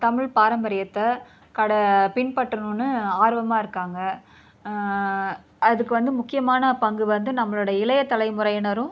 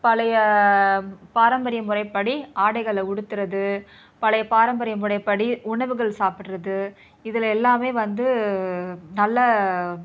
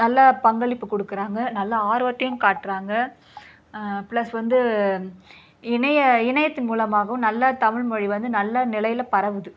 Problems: background sounds at intervals